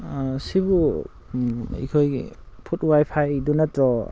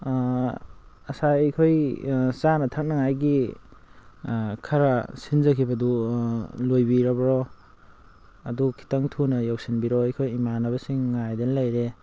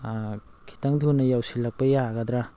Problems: constant background noise